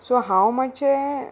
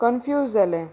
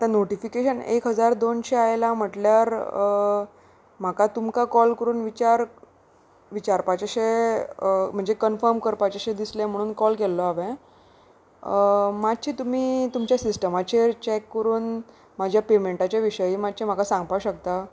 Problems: none marked